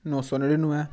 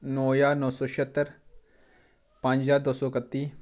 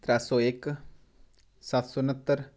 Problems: background sounds at intervals